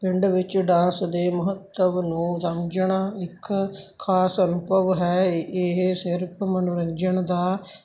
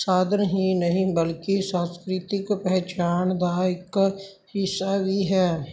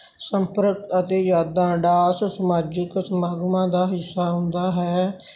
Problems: constant background noise